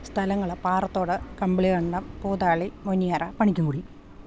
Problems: none marked